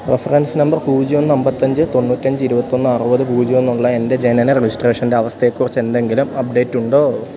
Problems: background sounds at intervals